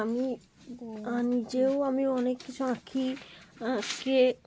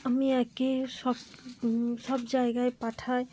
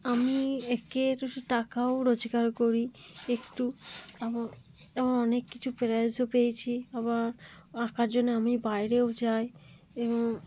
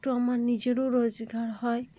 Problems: background conversations at intervals